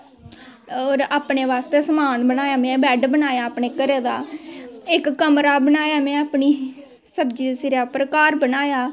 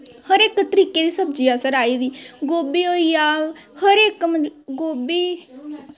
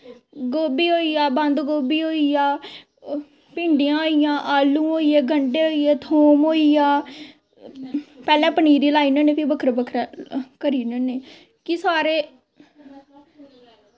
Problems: constant background noise